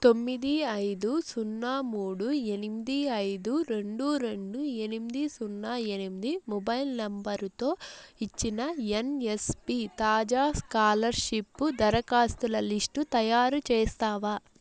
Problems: constant background noise